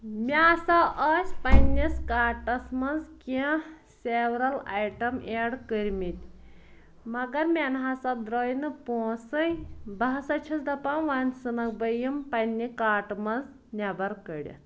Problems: none marked